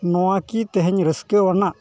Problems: none marked